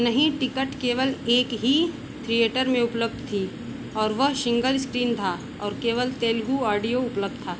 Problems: none marked